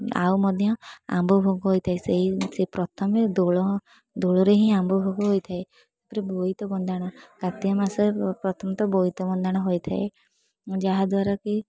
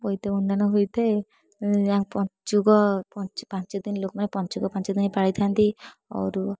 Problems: none marked